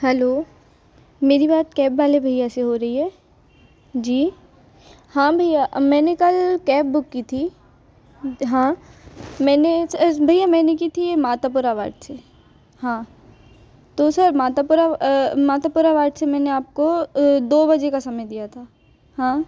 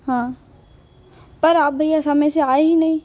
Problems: none marked